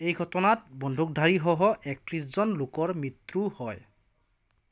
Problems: none marked